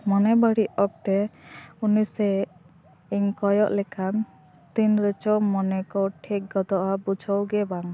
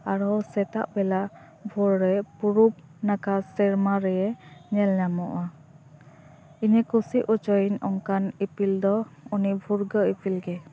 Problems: constant background noise